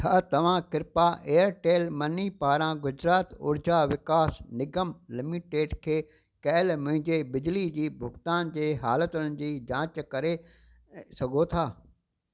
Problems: constant background noise